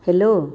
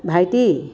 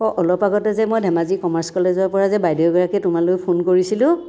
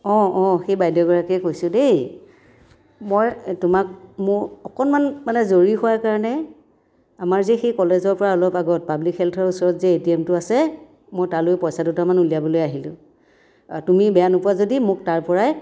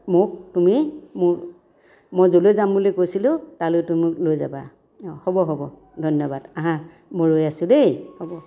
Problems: none marked